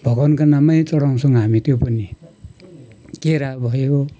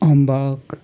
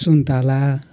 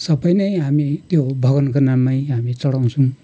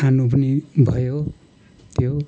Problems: constant background noise